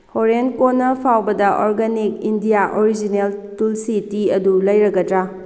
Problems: constant background noise